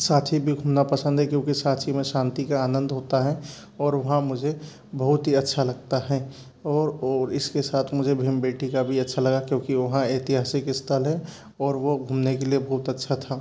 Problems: none marked